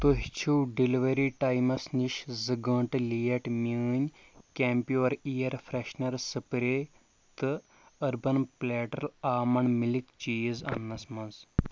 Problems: none marked